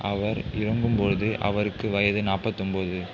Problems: continuous background conversations